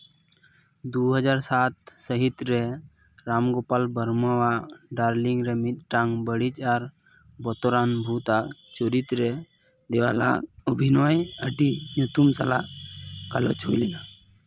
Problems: background sounds at intervals, background conversations at intervals